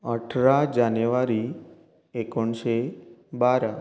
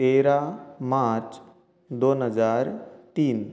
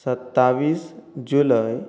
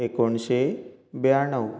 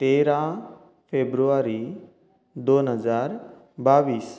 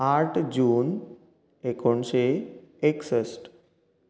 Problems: none marked